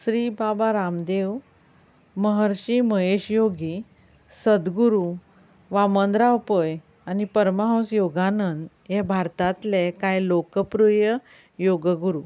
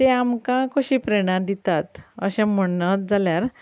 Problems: background sounds at intervals